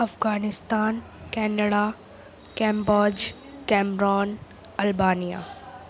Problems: constant background noise